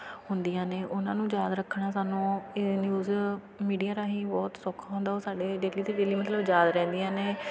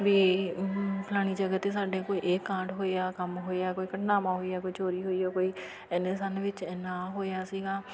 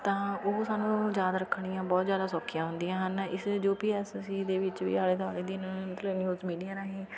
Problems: background sounds at intervals, continuous background conversations